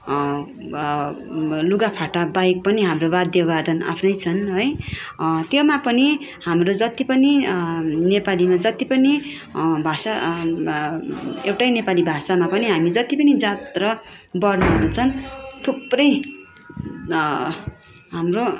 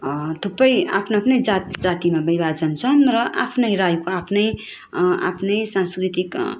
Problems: constant background noise